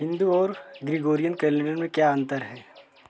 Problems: constant background noise, continuous background conversations